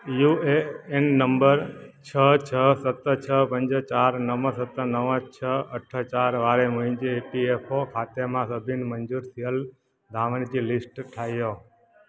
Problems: constant background noise, echo